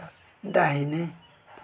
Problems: background conversations at intervals